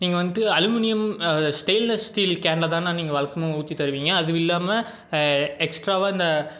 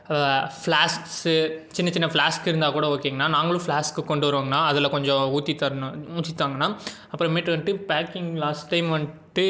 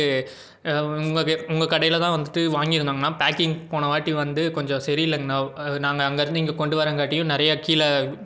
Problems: none marked